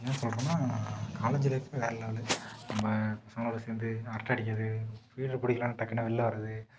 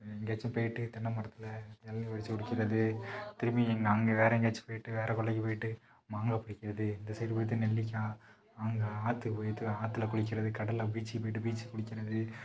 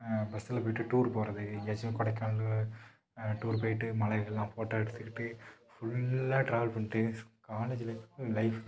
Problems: background sounds at intervals, low volume